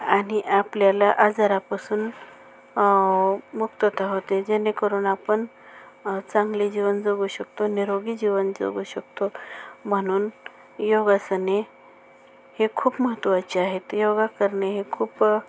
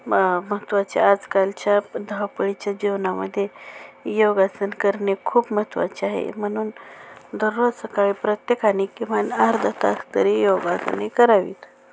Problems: none marked